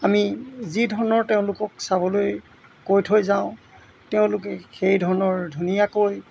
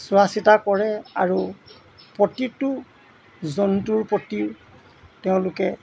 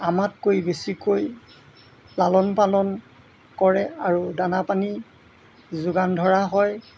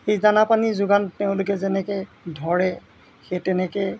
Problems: background sounds at intervals